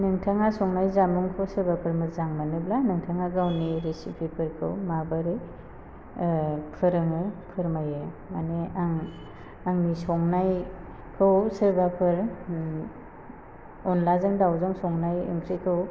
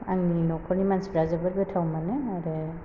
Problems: constant background noise